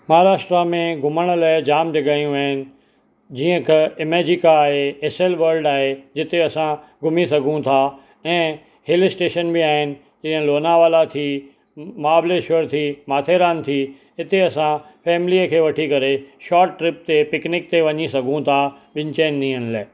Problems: none marked